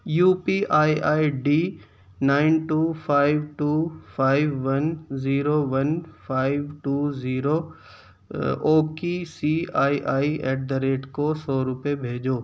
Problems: background sounds at intervals